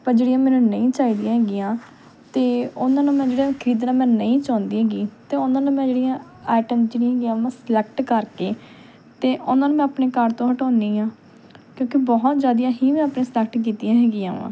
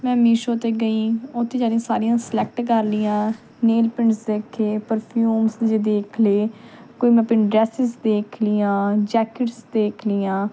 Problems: none marked